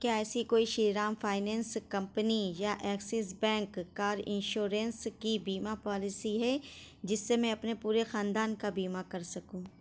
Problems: none marked